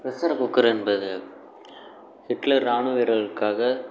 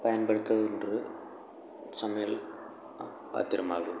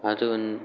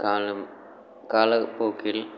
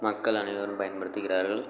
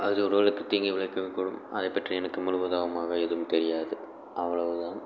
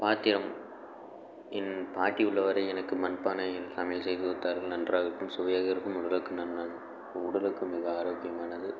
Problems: constant background noise